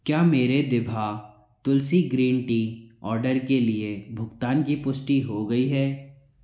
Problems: echo